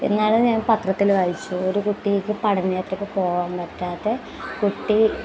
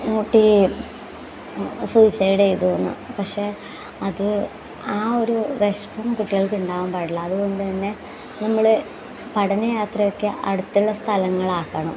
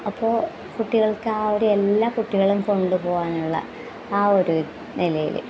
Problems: background sounds at intervals